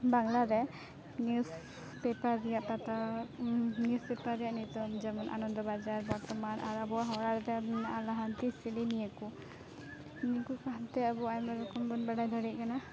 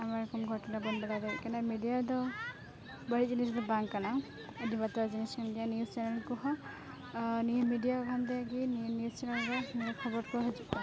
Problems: constant background noise, continuous background conversations